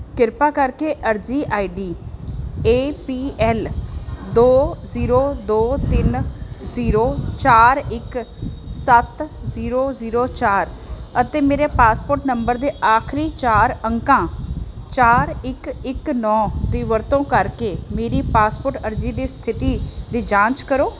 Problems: constant background noise